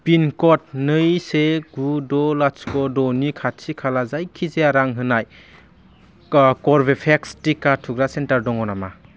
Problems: low volume